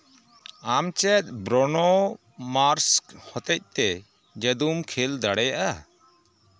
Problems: constant background noise